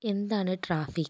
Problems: low volume